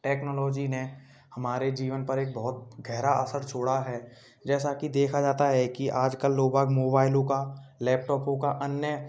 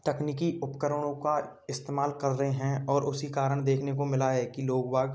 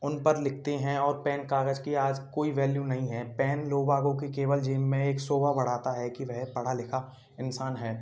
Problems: constant background noise, background conversations at intervals